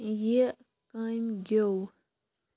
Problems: low volume